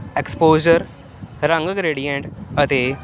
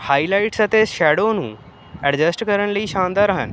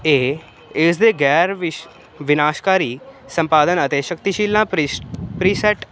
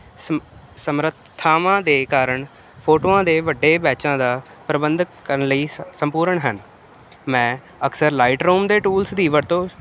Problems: constant background noise